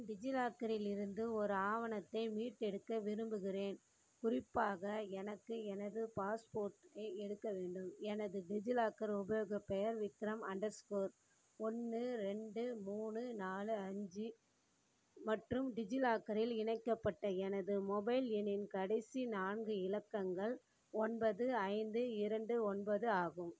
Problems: low volume